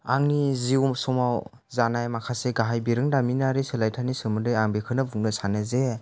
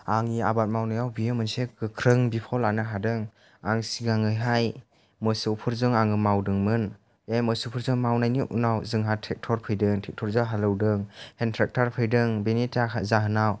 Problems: low volume